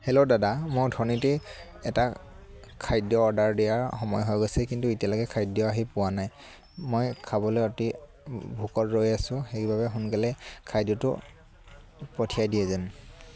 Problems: none marked